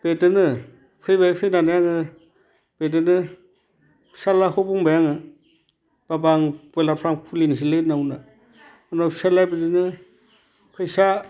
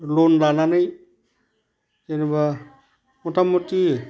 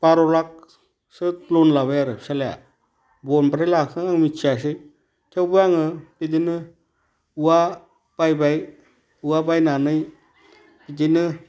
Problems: none marked